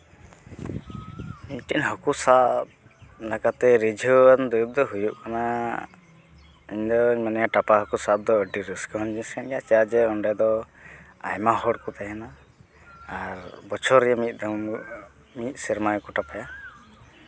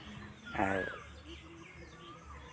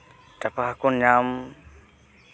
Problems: background sounds at intervals